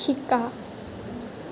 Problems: constant background noise